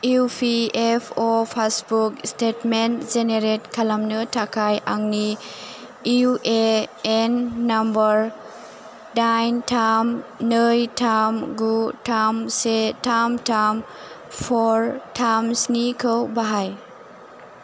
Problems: none marked